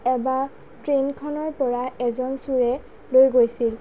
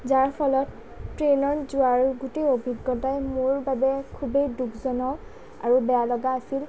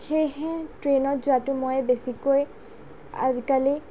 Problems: low volume